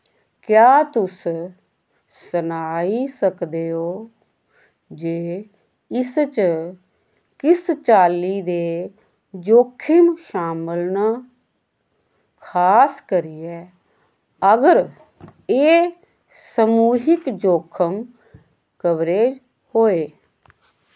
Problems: constant background noise